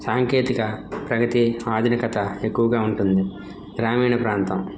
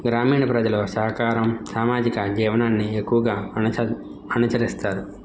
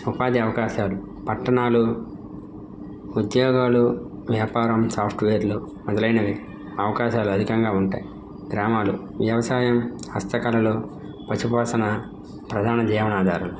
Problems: none marked